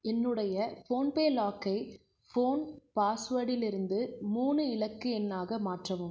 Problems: low volume